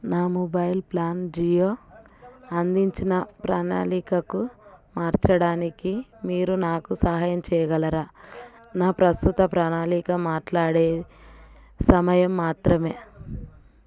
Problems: background conversations at intervals